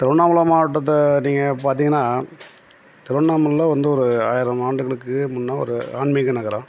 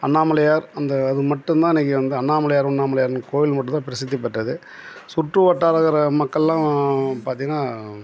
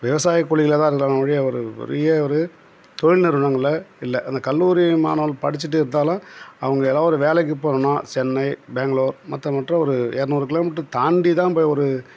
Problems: constant background noise